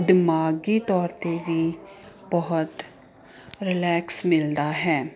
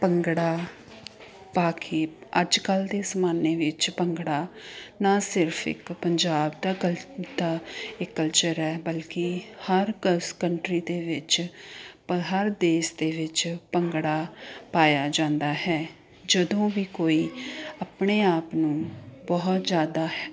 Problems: continuous background conversations